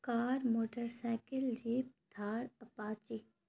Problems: none marked